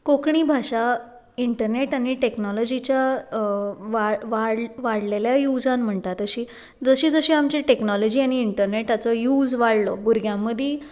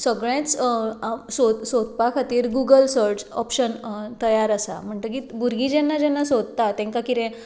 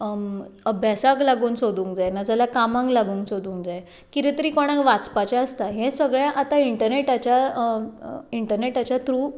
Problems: none marked